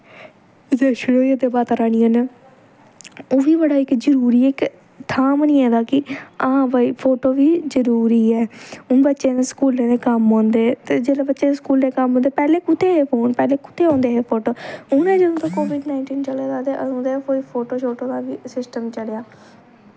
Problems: none marked